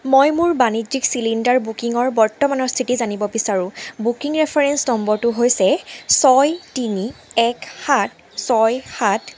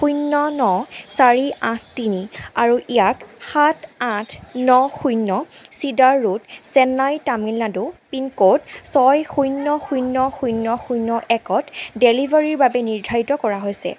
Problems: background sounds at intervals